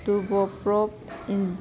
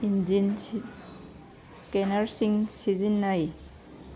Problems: background sounds at intervals